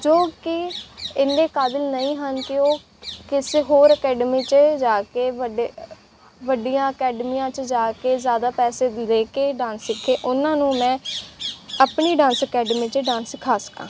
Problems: background sounds at intervals